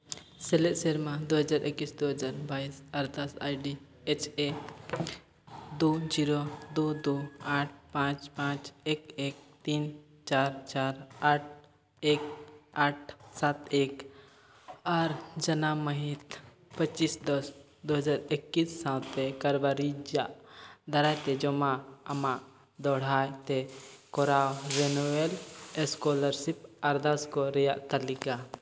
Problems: background sounds at intervals, echo